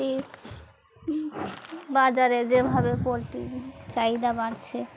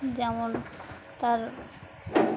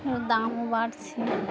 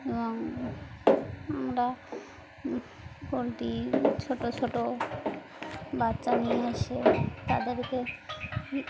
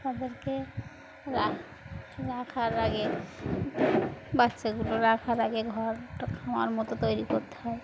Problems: constant background noise, background conversations at intervals